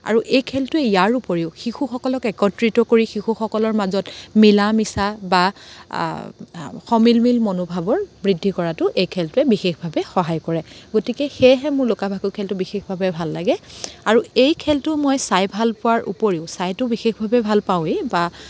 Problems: constant background noise